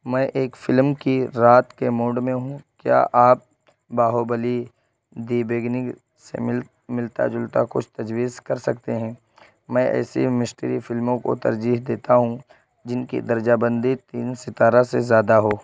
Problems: constant background noise